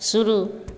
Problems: constant background noise, echo